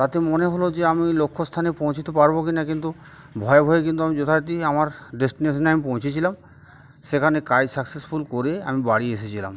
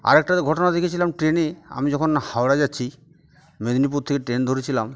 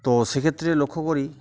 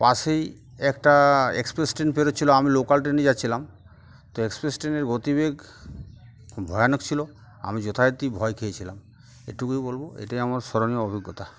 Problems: background sounds at intervals, background conversations at intervals